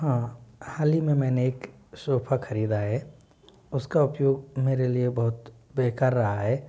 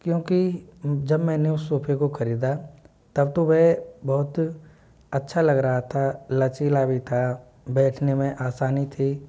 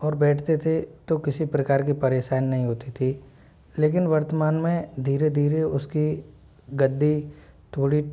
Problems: constant background noise